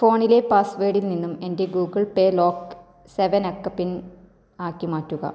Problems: low volume